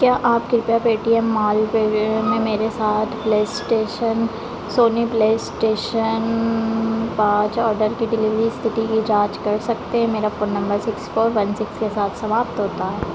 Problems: none marked